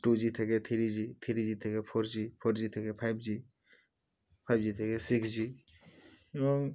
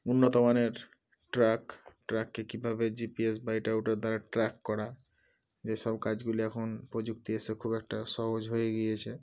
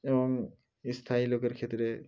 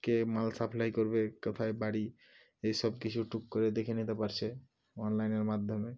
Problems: none marked